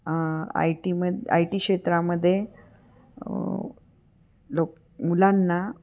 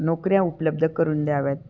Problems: none marked